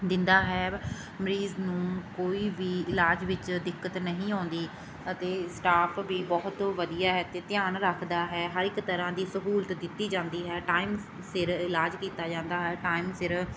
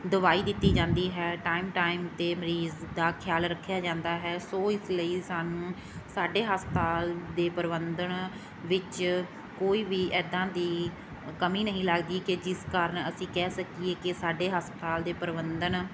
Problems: background sounds at intervals